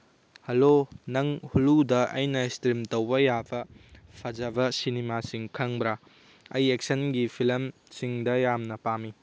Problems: none marked